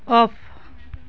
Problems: background conversations at intervals